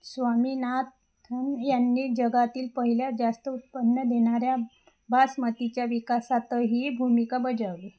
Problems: background sounds at intervals